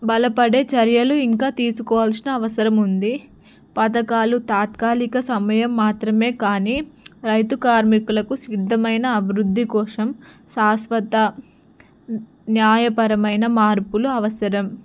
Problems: none marked